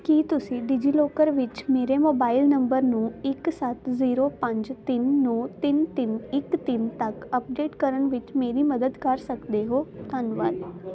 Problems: constant background noise